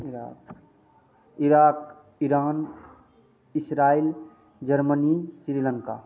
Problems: constant background noise